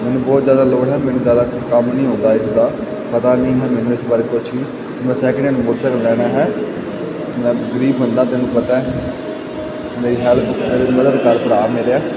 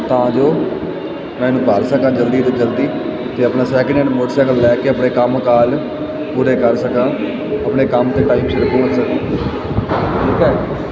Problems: constant background noise